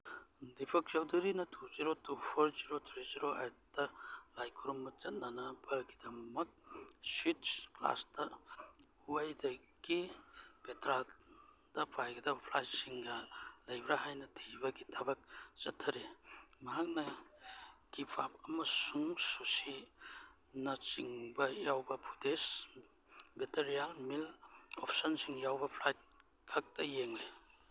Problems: none marked